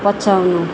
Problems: none marked